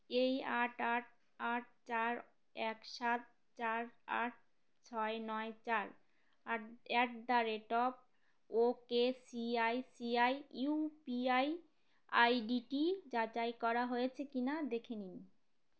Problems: none marked